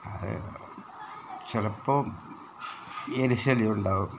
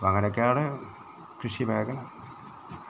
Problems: background sounds at intervals